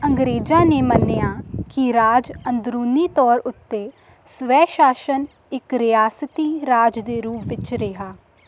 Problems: none marked